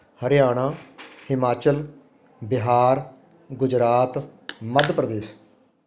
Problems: constant background noise